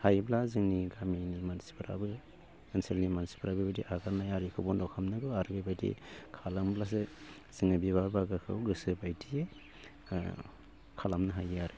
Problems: constant background noise